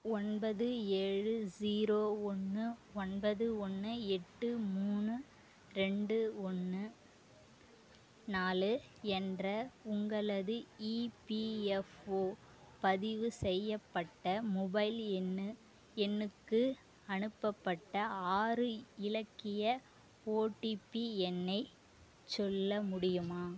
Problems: low volume